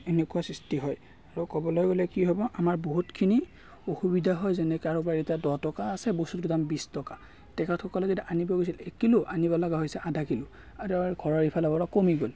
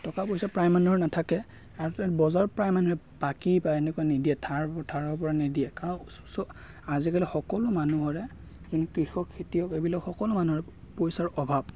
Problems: none marked